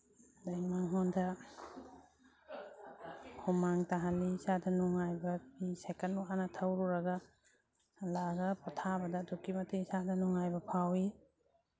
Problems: background sounds at intervals, background conversations at intervals